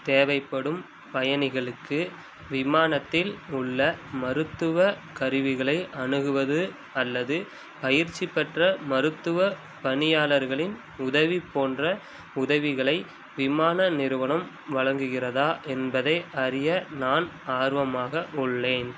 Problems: background sounds at intervals